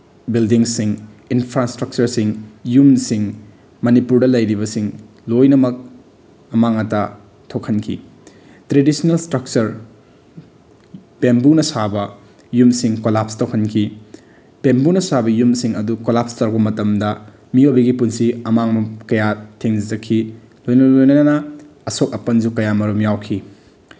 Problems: none marked